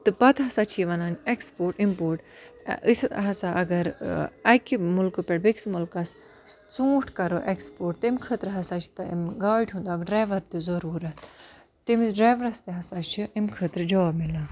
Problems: continuous background conversations